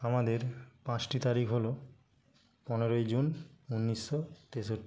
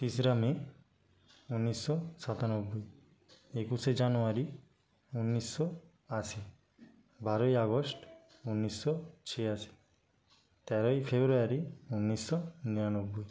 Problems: background sounds at intervals